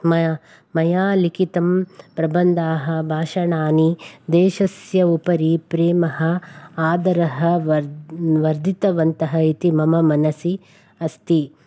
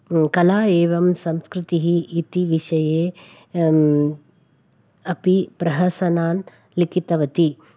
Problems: none marked